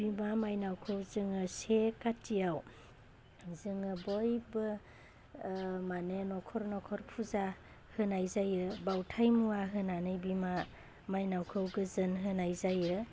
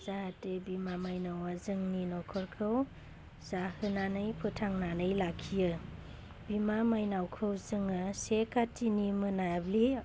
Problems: constant background noise